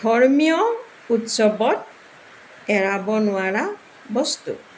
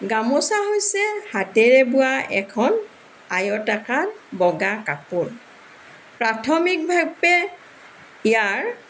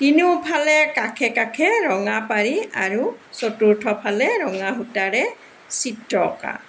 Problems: background sounds at intervals, background conversations at intervals